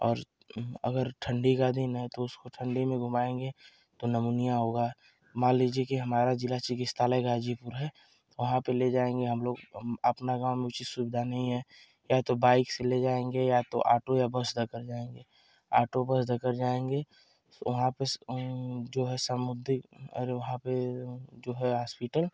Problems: constant background noise